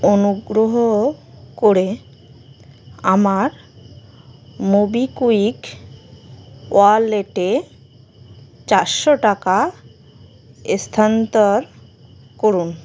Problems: constant background noise